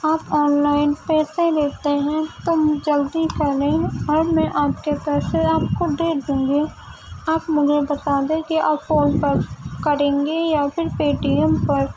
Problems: constant background noise